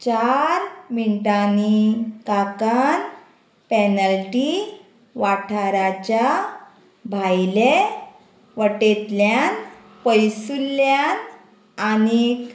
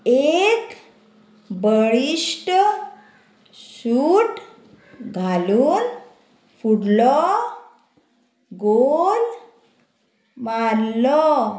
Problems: constant background noise